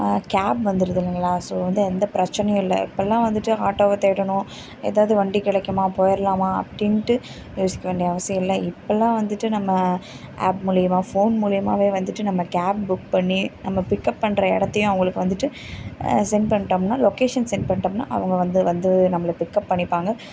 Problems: background sounds at intervals